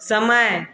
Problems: background sounds at intervals